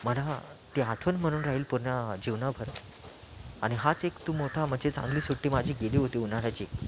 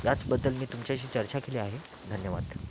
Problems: background sounds at intervals